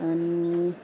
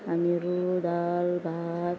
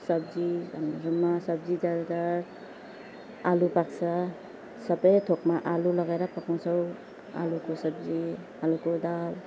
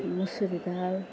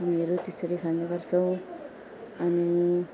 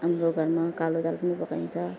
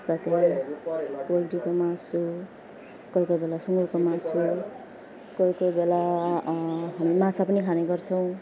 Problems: background sounds at intervals, background conversations at intervals